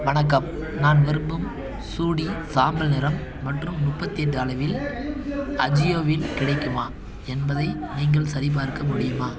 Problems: background conversations at intervals